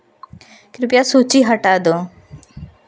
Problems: constant background noise